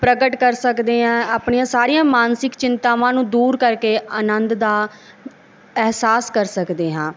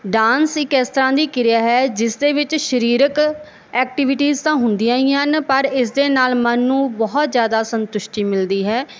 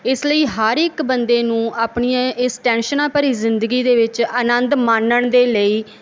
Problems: background sounds at intervals